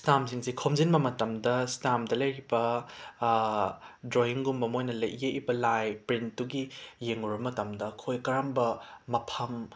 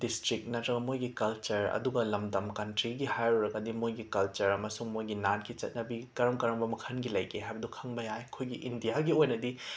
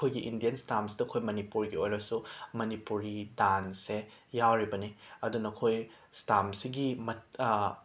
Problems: none marked